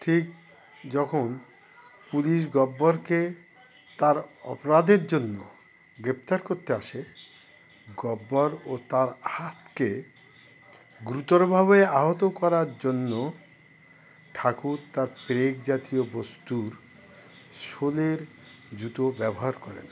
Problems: background sounds at intervals